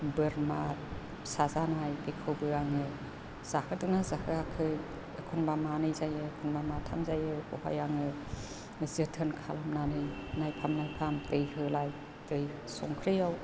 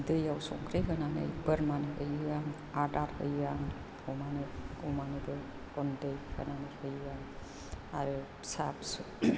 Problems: constant background noise